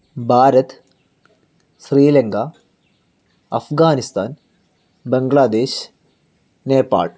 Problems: none marked